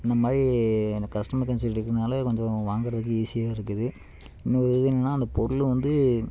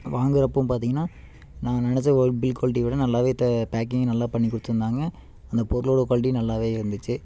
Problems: constant background noise